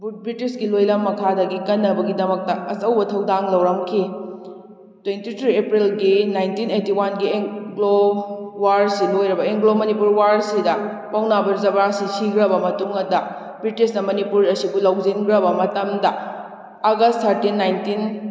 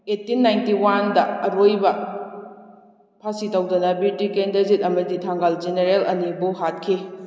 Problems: echo